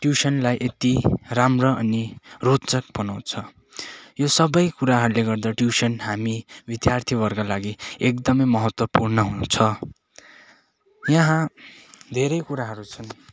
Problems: none marked